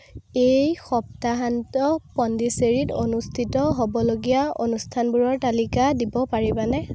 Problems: constant background noise